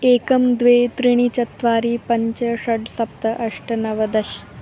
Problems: continuous background conversations